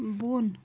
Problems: constant background noise